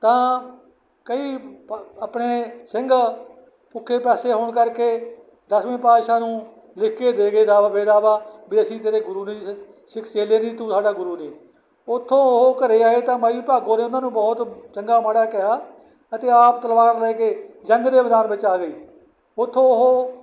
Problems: background sounds at intervals